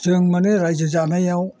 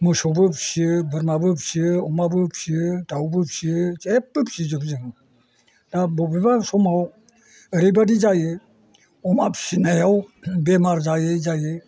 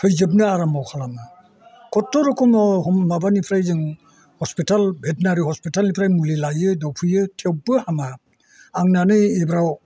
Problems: constant background noise